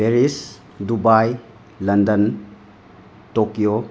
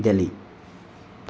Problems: constant background noise